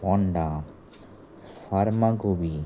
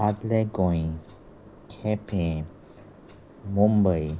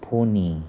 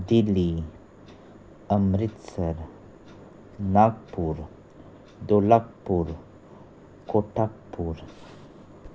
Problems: constant background noise